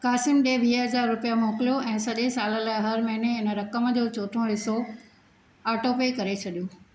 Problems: none marked